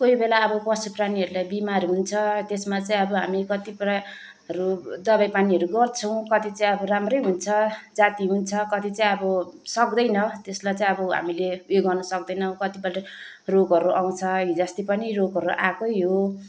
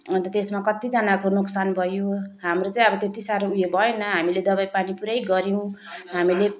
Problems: none marked